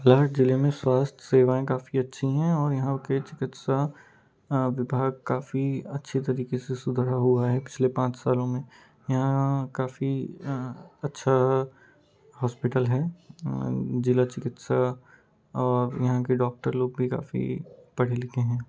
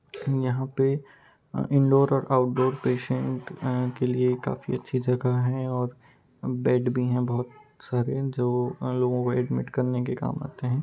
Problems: constant background noise, background conversations at intervals